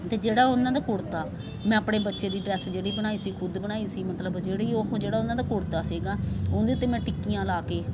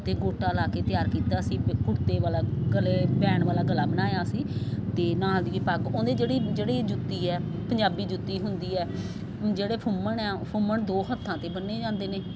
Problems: constant background noise